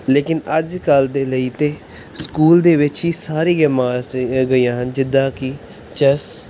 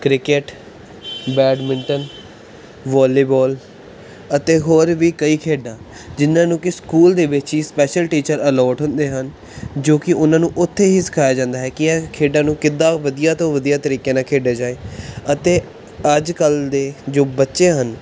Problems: background conversations at intervals